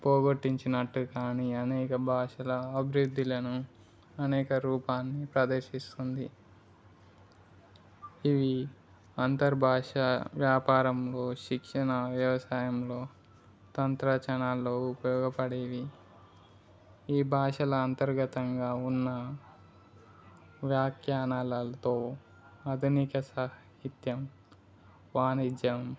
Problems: background conversations at intervals